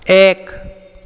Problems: echo